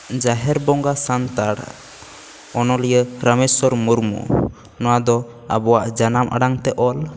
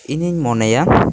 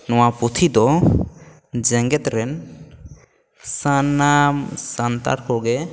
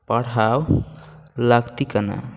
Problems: constant background noise